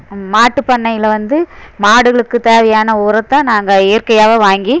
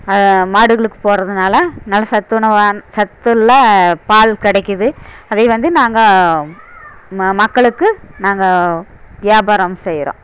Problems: background sounds at intervals